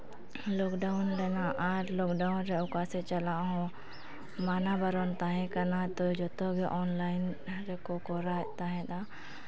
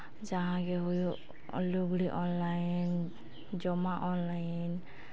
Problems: constant background noise